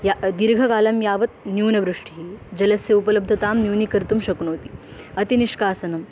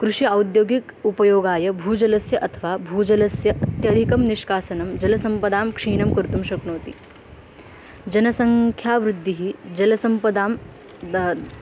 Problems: none marked